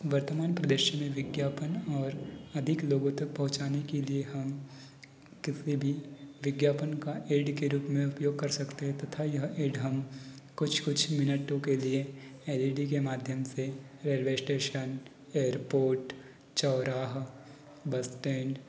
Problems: background sounds at intervals